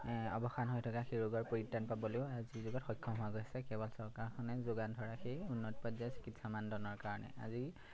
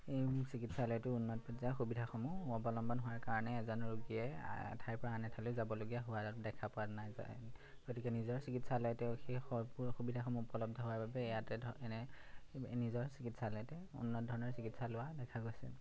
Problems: background sounds at intervals